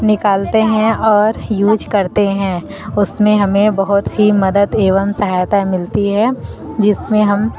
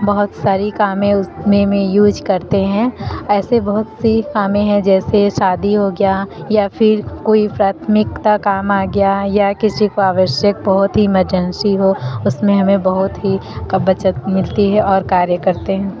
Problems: constant background noise, background conversations at intervals